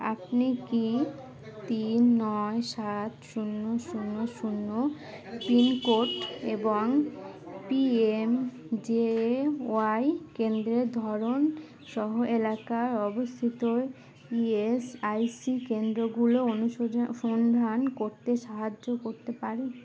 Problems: constant background noise